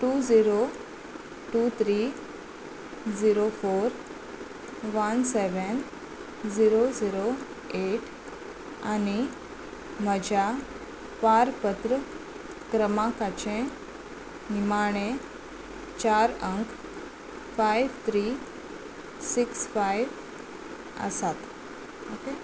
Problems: constant background noise